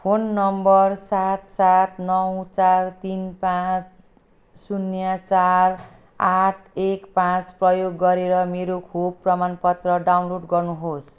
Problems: none marked